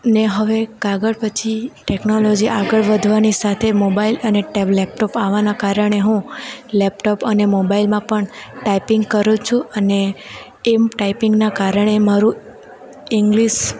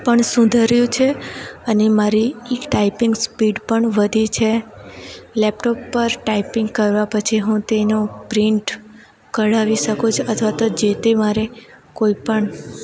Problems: constant background noise